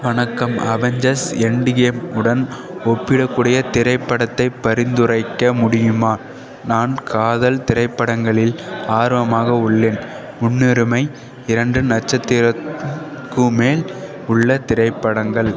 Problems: none marked